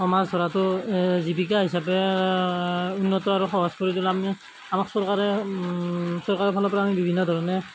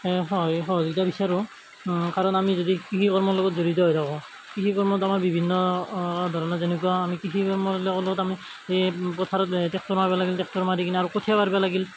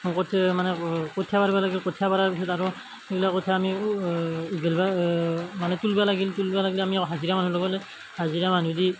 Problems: none marked